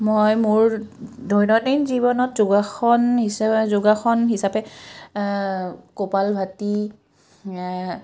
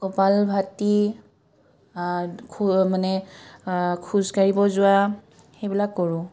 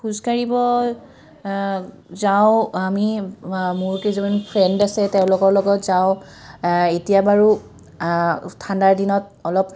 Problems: none marked